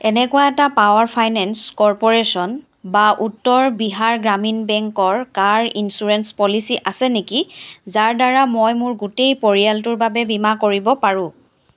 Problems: background sounds at intervals